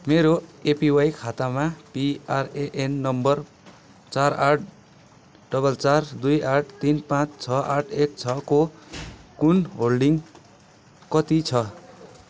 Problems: constant background noise